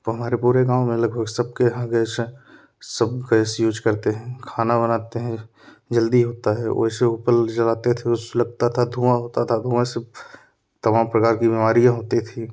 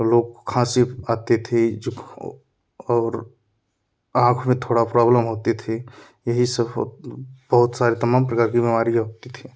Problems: none marked